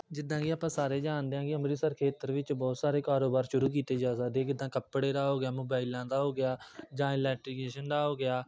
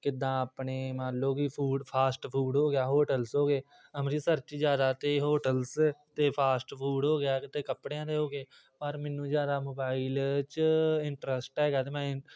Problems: background sounds at intervals, background conversations at intervals